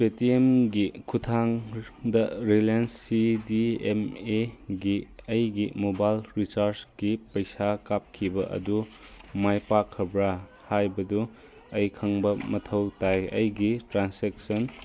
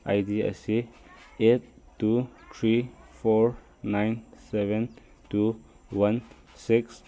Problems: background conversations at intervals